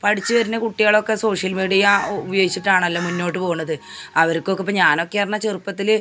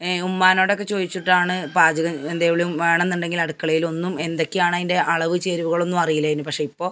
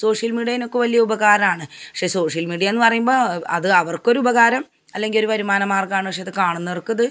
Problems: none marked